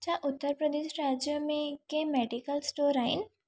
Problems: none marked